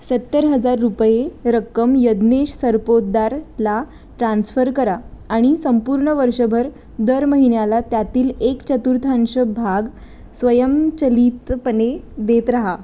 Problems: none marked